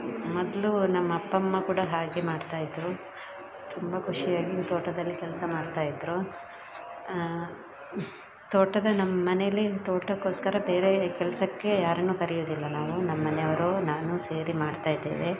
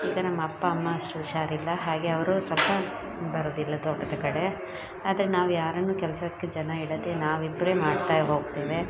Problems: background sounds at intervals, background conversations at intervals